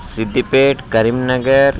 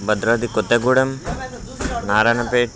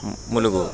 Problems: constant background noise